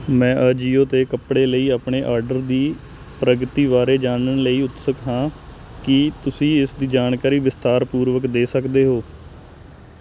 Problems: constant background noise